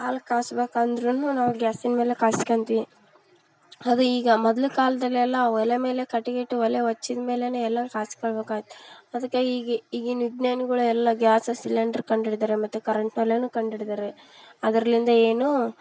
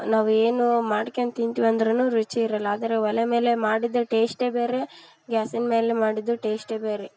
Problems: background sounds at intervals